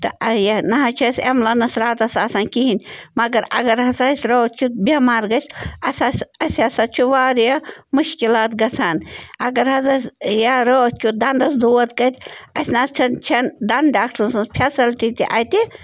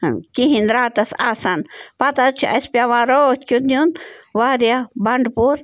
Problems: background sounds at intervals